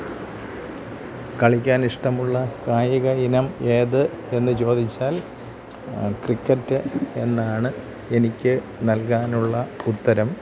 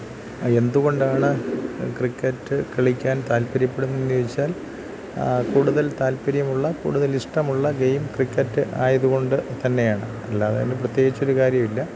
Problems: constant background noise, low volume